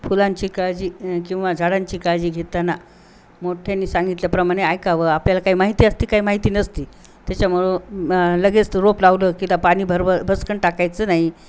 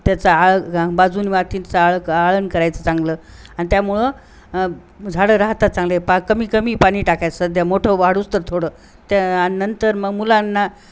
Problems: none marked